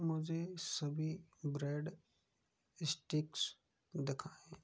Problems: low volume